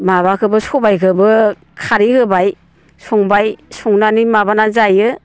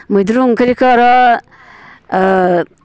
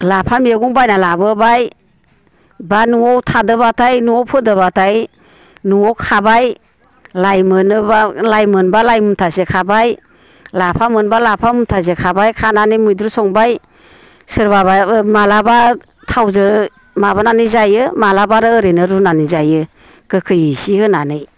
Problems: constant background noise